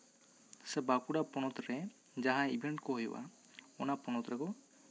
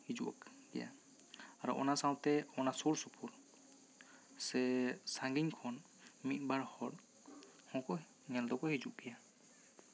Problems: constant background noise, background conversations at intervals